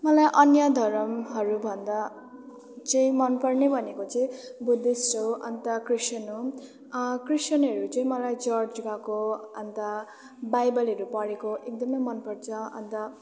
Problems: none marked